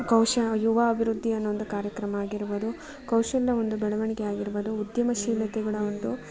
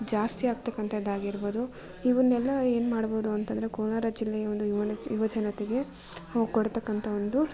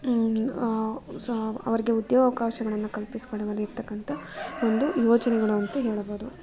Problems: background sounds at intervals